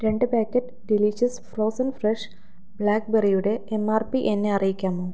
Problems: none marked